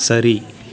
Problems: continuous background conversations